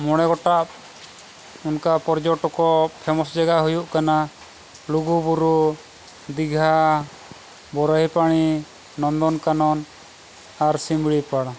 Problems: constant background noise